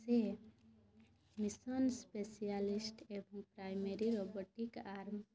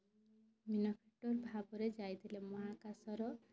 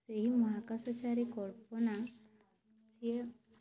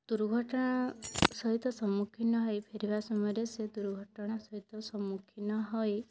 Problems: none marked